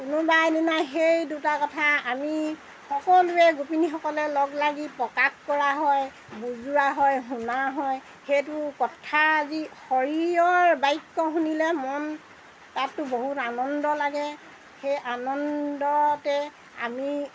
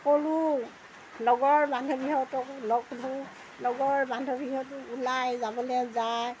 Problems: background sounds at intervals